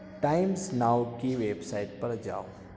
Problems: background sounds at intervals, background conversations at intervals